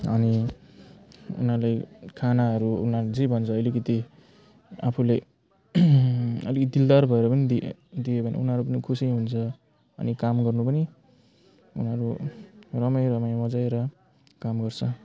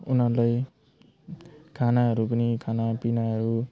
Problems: constant background noise